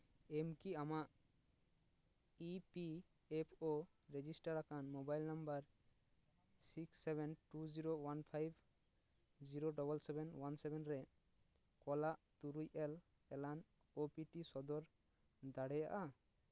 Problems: none marked